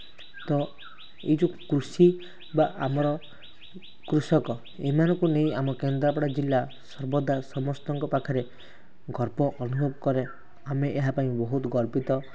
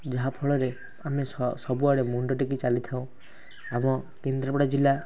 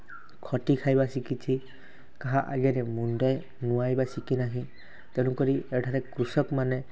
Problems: constant background noise